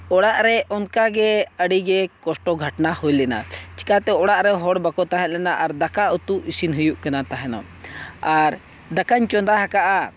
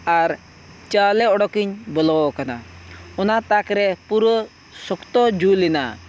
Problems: none marked